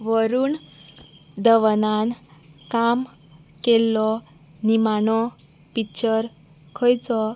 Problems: constant background noise